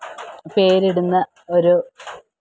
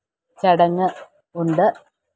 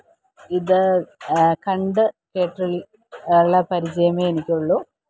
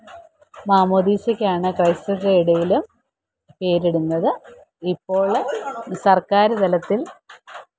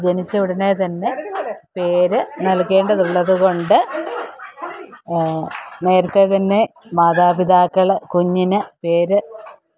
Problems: constant background noise, background conversations at intervals